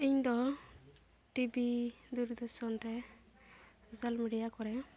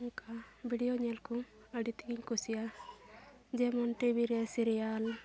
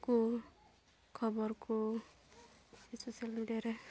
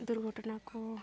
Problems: constant background noise, background conversations at intervals